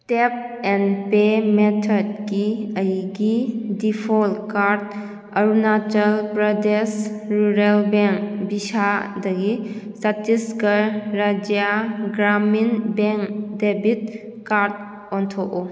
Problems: echo